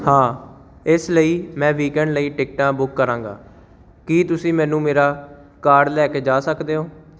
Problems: none marked